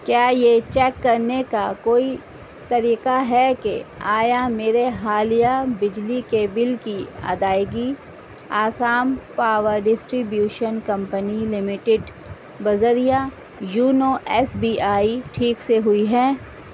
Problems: constant background noise